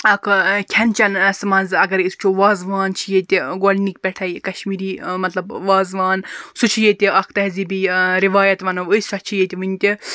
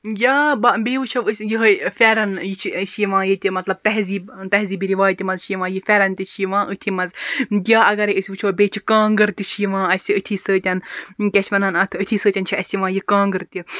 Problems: none marked